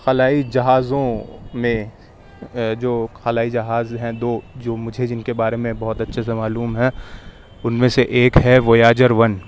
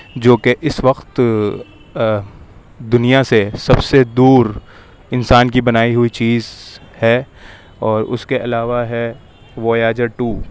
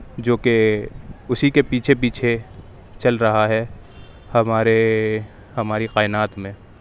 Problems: constant background noise